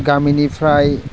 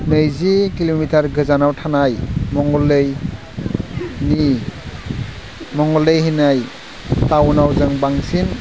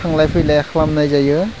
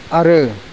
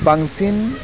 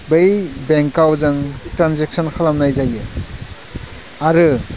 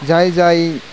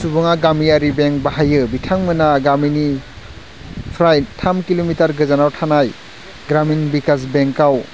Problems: constant background noise